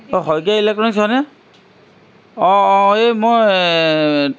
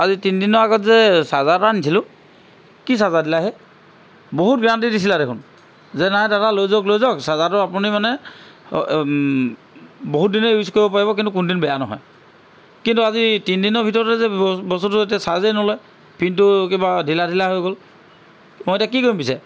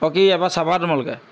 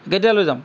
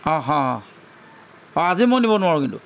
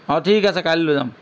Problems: constant background noise